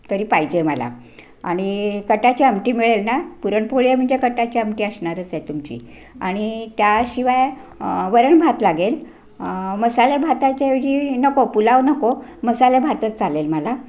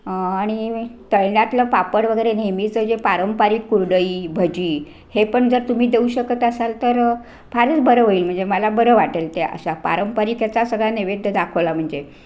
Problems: constant background noise